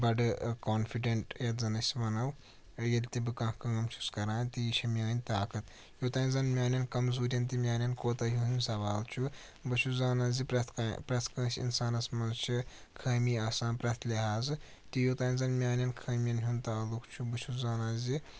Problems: constant background noise